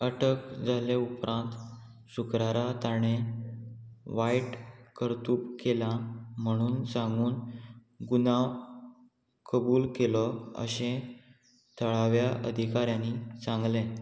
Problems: none marked